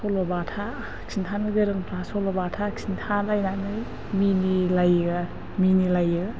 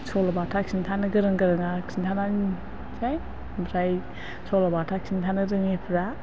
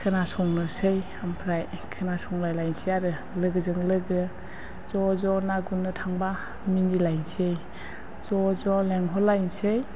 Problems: low volume